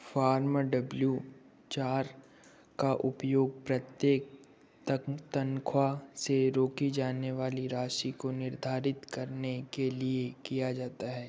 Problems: background sounds at intervals